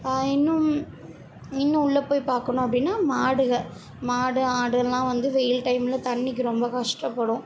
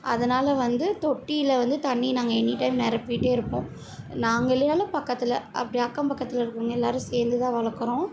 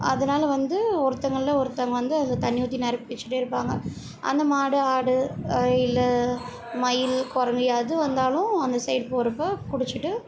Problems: continuous background conversations